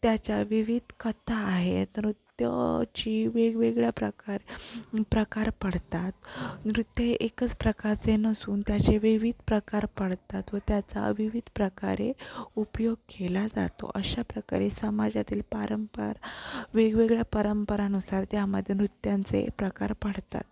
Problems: constant background noise